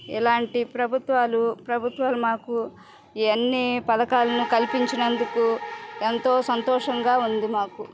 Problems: background sounds at intervals